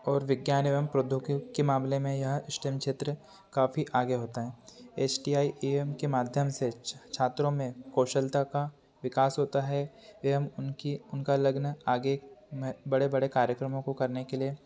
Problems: constant background noise